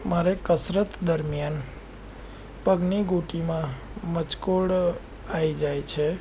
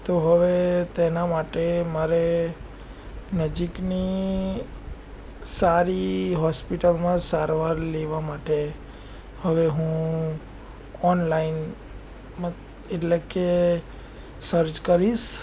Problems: none marked